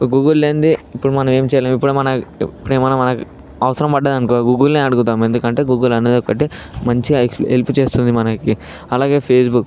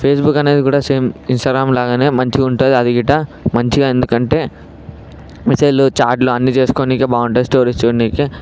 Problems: background sounds at intervals